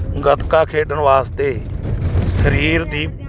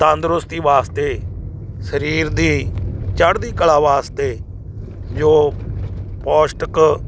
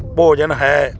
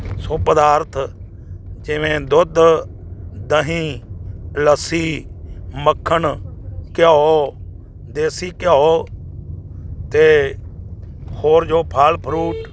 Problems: constant background noise